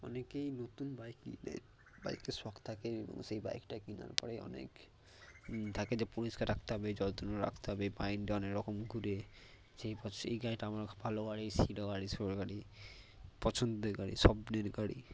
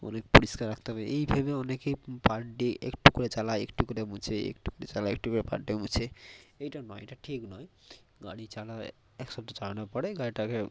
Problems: constant background noise, low volume